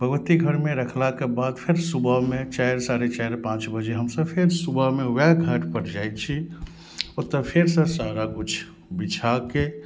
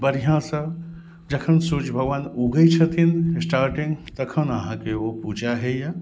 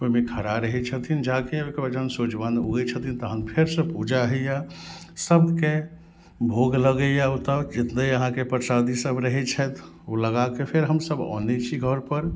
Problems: none marked